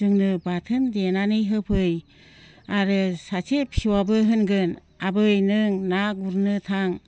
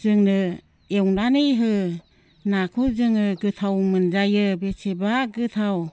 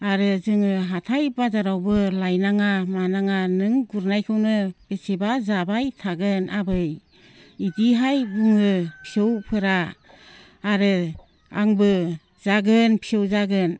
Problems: constant background noise